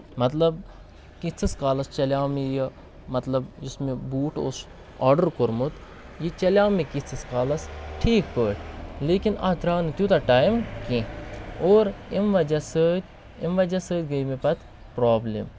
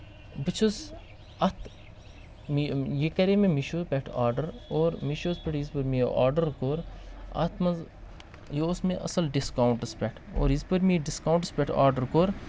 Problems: constant background noise